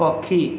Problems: constant background noise